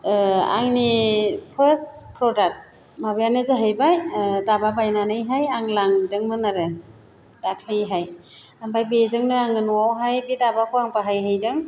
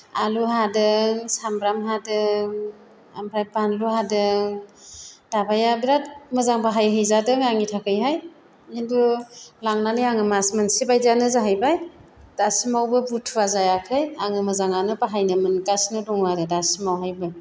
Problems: constant background noise